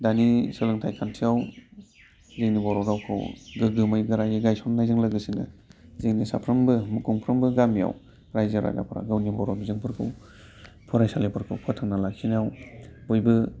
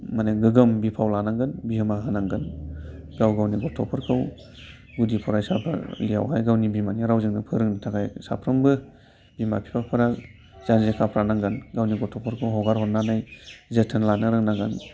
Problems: constant background noise